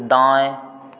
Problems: background sounds at intervals